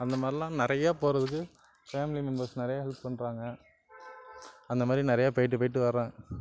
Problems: constant background noise, background conversations at intervals